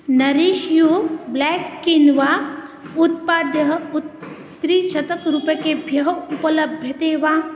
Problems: background sounds at intervals